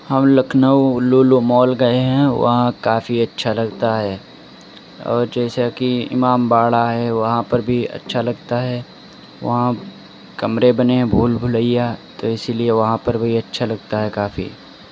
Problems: constant background noise